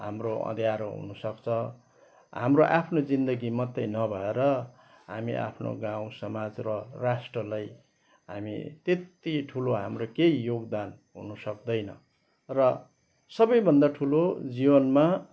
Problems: background sounds at intervals